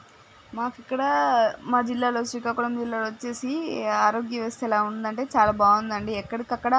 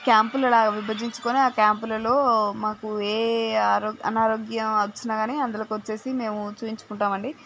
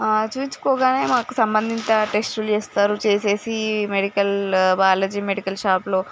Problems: background sounds at intervals